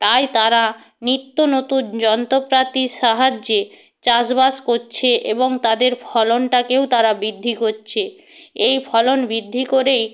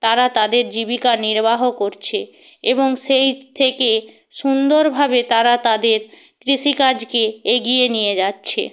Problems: none marked